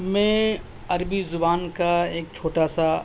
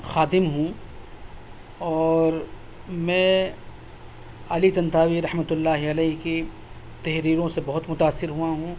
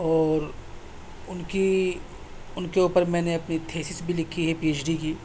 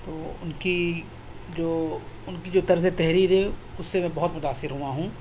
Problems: constant background noise